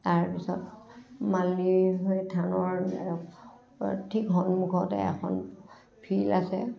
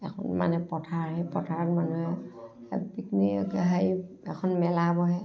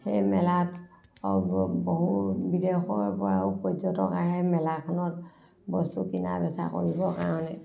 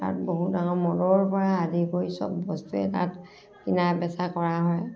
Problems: background sounds at intervals, background conversations at intervals, low volume